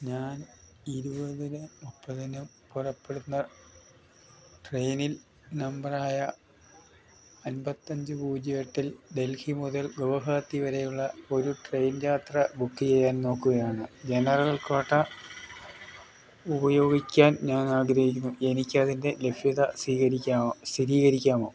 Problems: none marked